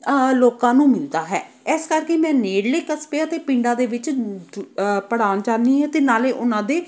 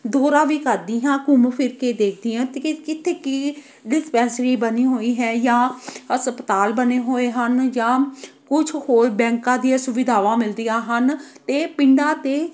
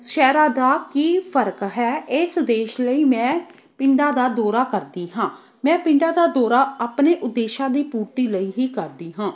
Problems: none marked